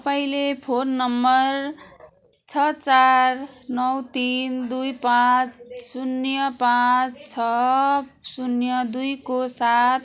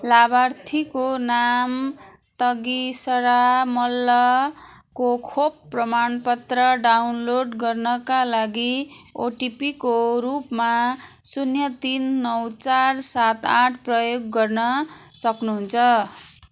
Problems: none marked